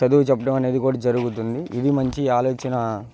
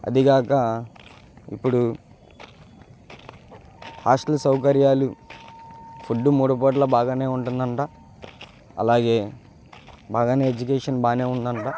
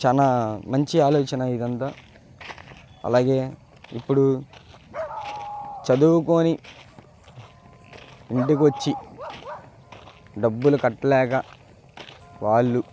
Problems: constant background noise